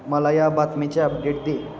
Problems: constant background noise